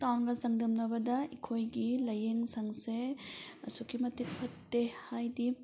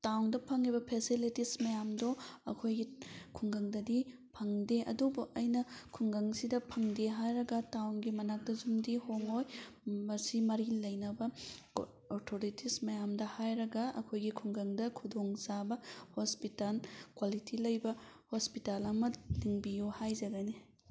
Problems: none marked